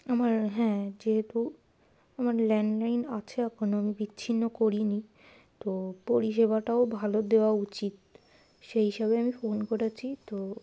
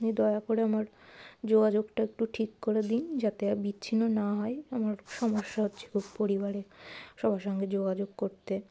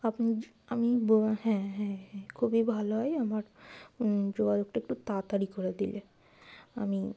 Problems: constant background noise